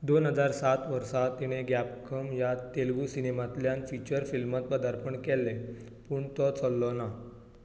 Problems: none marked